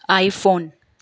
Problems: none marked